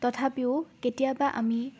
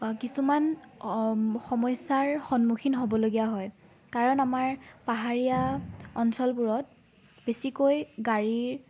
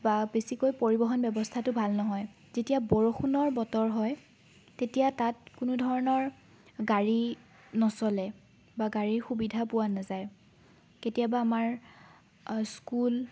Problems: background sounds at intervals, background conversations at intervals